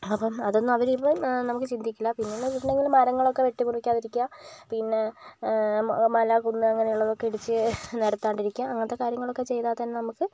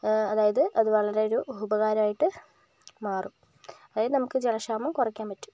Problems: background sounds at intervals